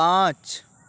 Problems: none marked